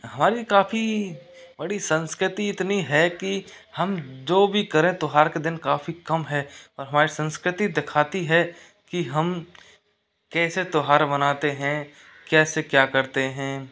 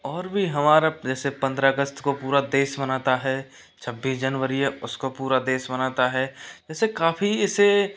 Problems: none marked